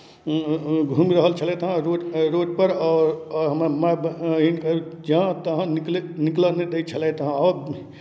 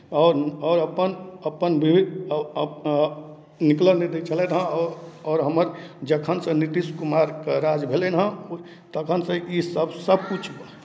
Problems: none marked